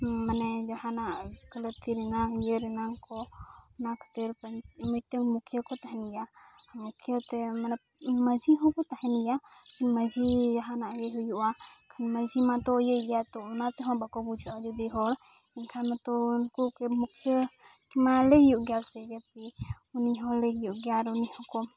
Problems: background sounds at intervals, background conversations at intervals